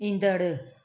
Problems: none marked